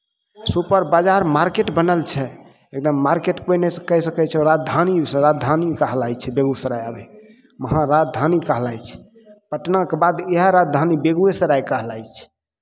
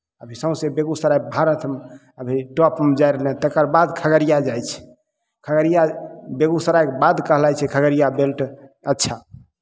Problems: none marked